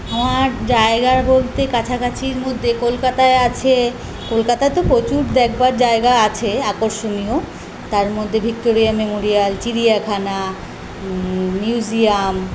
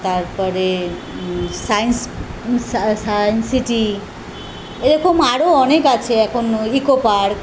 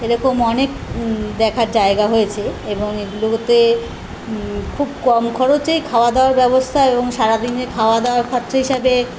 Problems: constant background noise